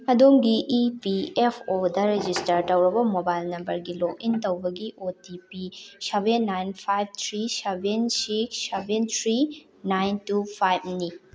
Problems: constant background noise